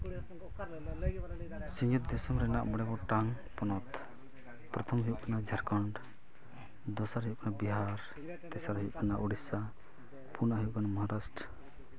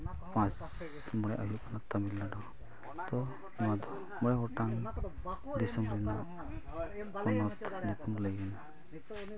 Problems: continuous background conversations